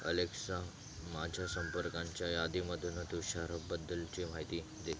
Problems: none marked